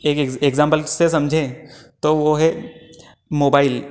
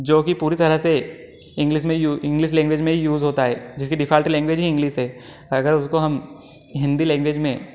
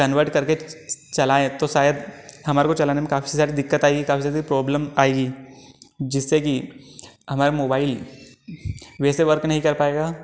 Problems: background conversations at intervals